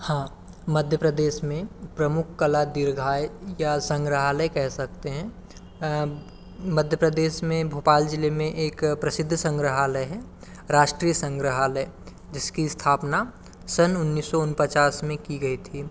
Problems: constant background noise, continuous background conversations